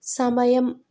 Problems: none marked